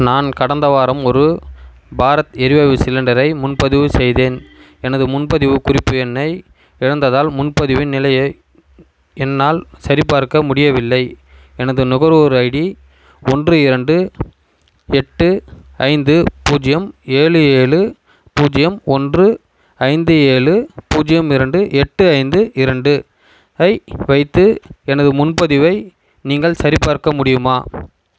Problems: constant background noise